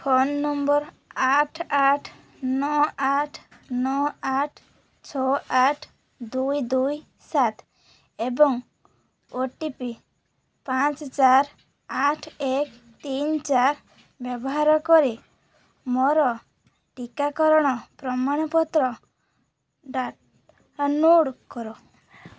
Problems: none marked